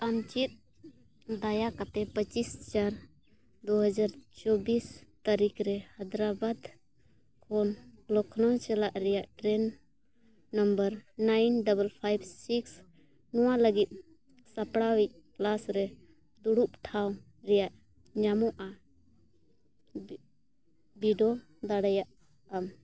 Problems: none marked